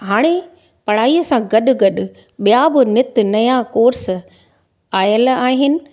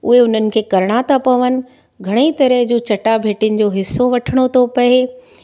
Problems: none marked